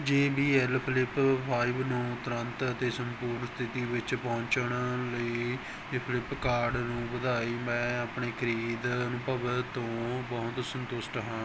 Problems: none marked